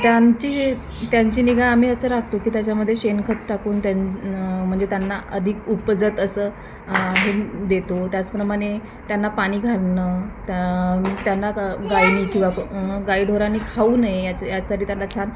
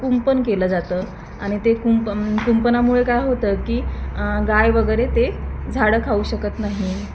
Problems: constant background noise, continuous background conversations